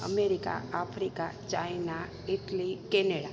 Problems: constant background noise, echo